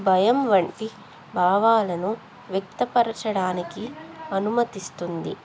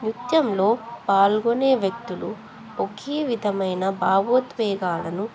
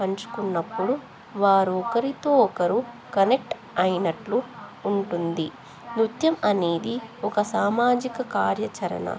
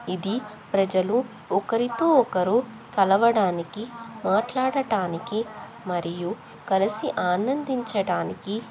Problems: continuous background conversations